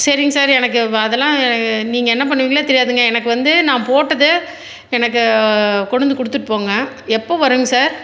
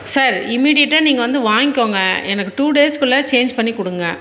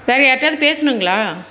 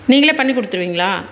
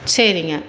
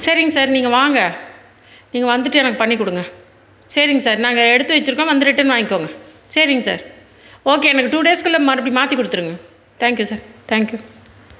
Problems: none marked